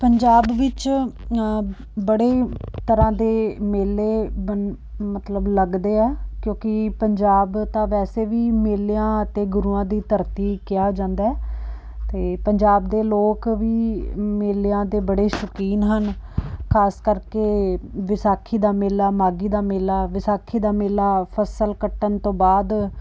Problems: none marked